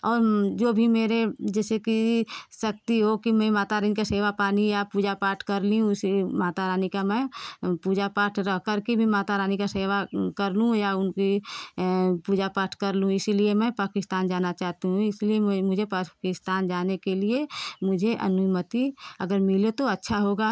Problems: background sounds at intervals